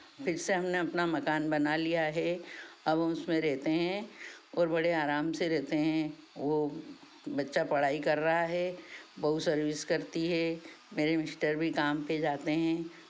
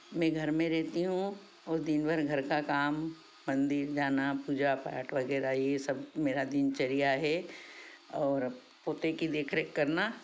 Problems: none marked